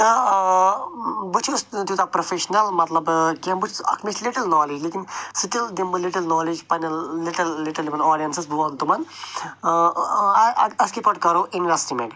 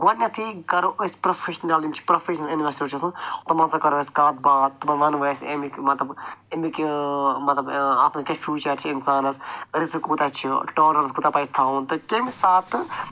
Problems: none marked